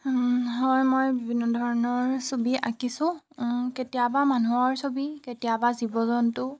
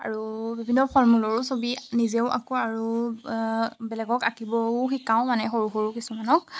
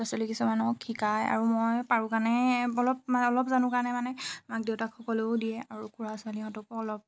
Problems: constant background noise